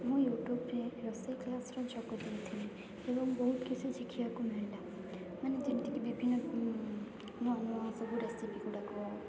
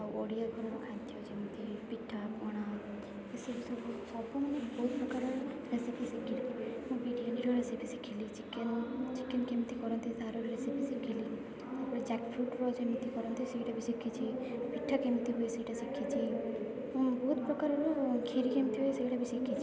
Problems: constant background noise, continuous background conversations